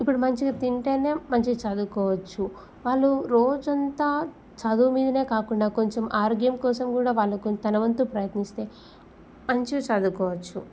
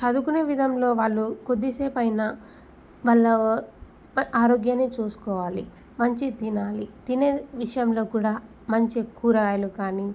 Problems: none marked